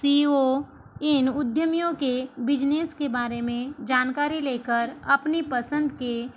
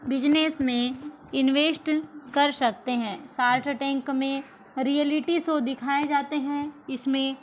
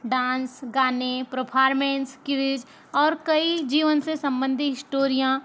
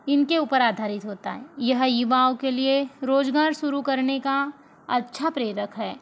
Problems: constant background noise